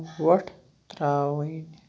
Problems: none marked